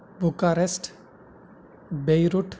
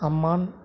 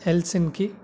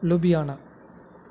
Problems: none marked